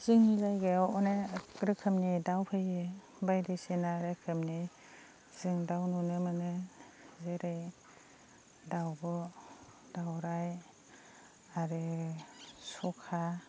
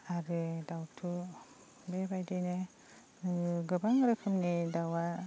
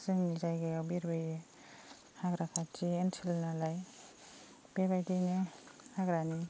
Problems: constant background noise